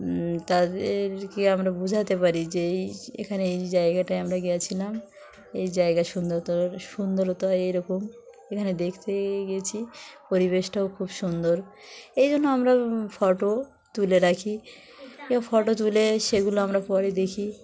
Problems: constant background noise, continuous background conversations